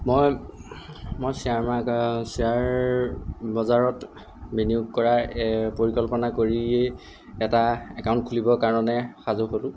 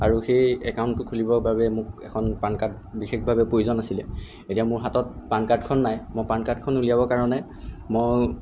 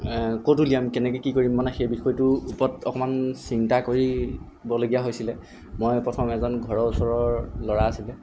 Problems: background sounds at intervals